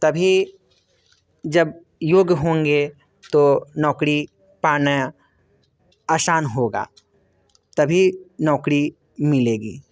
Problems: constant background noise